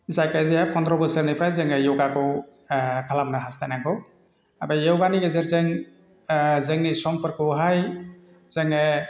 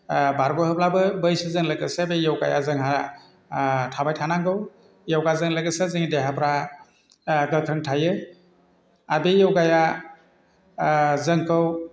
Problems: constant background noise